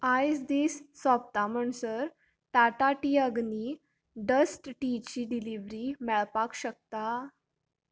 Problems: constant background noise